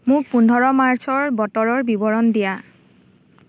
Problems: none marked